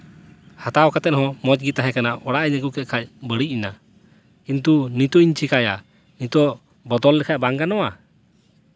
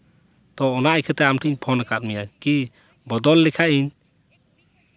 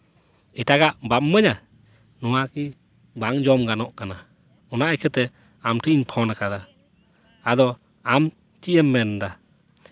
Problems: none marked